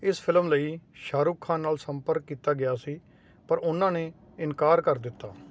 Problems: constant background noise